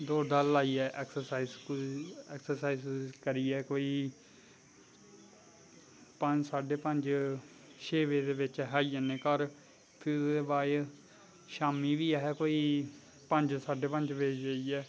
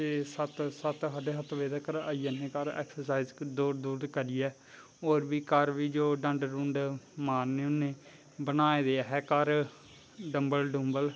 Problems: constant background noise